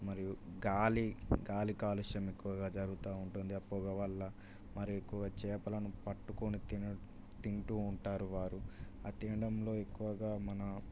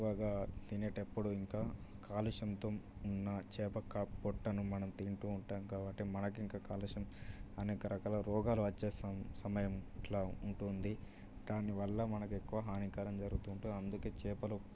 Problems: low volume